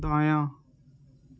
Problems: constant background noise